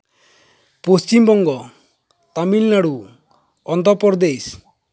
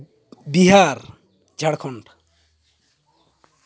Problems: background sounds at intervals